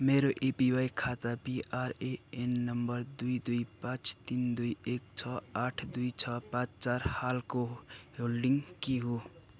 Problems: none marked